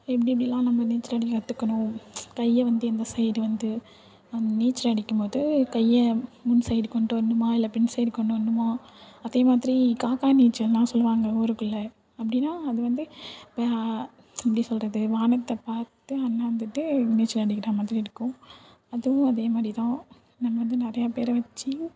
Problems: none marked